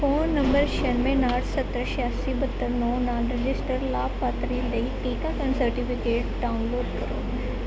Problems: constant background noise